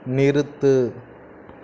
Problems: none marked